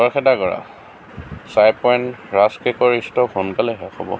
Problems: constant background noise